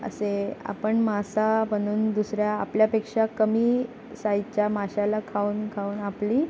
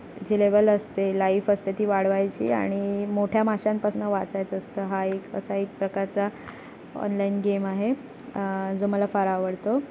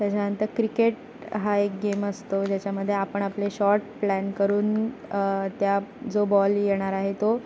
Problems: constant background noise